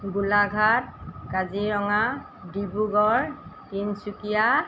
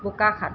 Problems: none marked